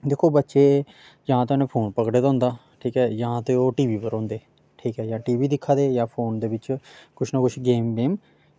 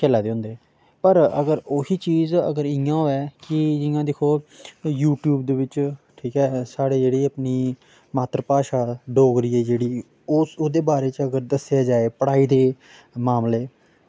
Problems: background sounds at intervals